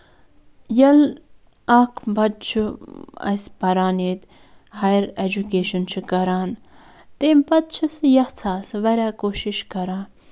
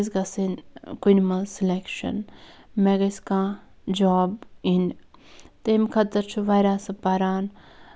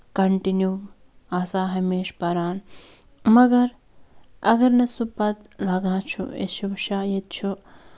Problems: background sounds at intervals